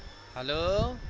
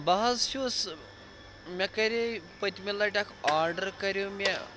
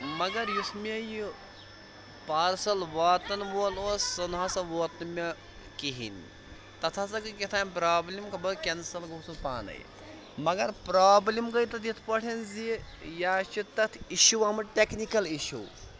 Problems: constant background noise